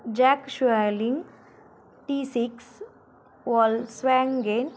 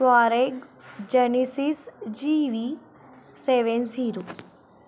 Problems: none marked